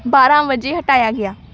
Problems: background sounds at intervals